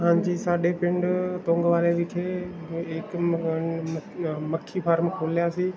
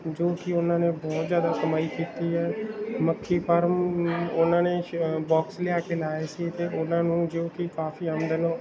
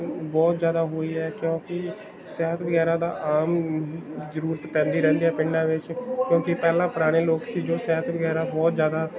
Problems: background sounds at intervals, background conversations at intervals